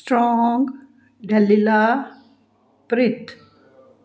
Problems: background sounds at intervals